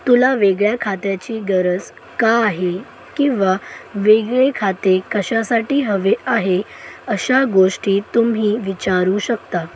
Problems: none marked